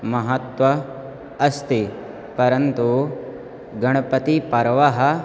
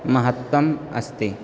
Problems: constant background noise